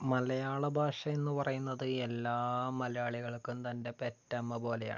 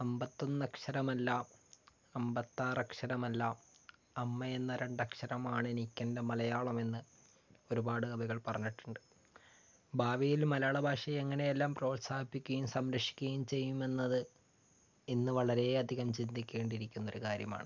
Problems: low volume